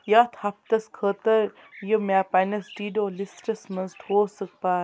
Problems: none marked